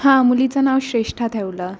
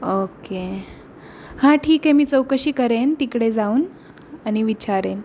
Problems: none marked